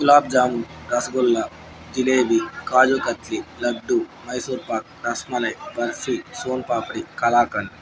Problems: background conversations at intervals